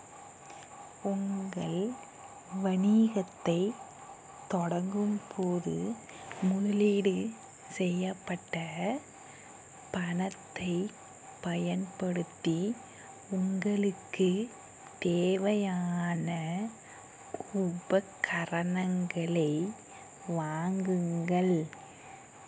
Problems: background sounds at intervals, low volume